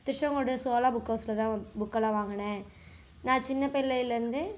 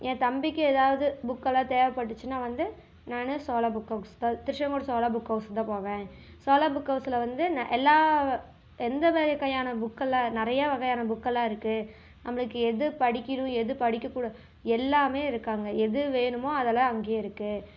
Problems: background sounds at intervals